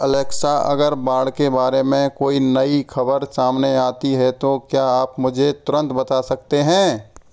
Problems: none marked